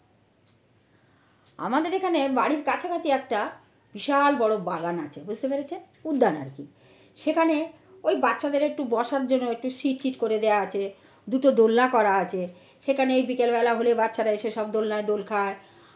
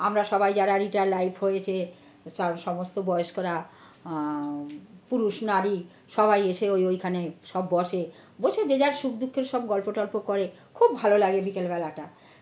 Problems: none marked